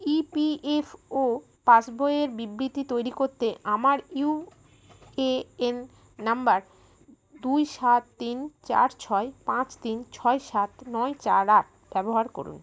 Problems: none marked